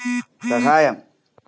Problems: background sounds at intervals